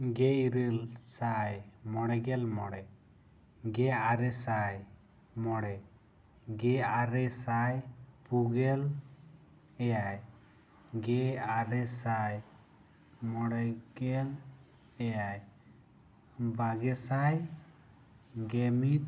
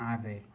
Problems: none marked